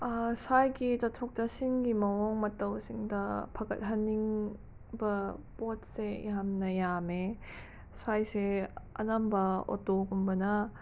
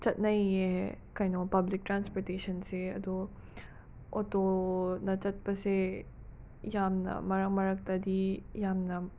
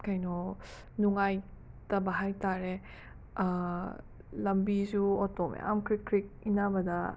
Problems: background sounds at intervals